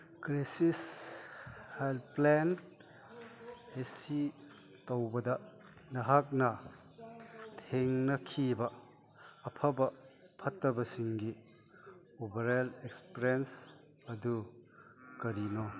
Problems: background sounds at intervals, background conversations at intervals